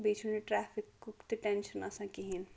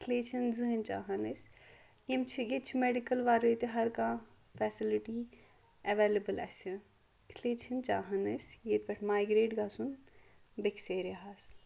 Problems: none marked